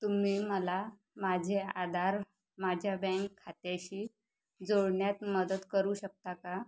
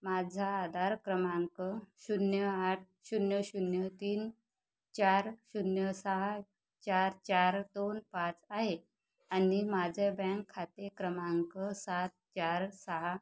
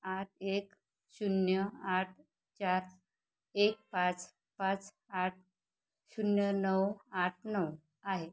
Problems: none marked